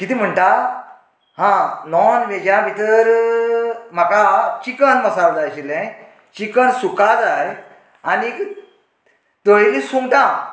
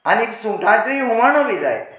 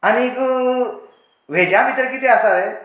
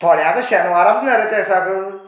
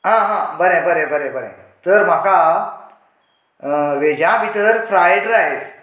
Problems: none marked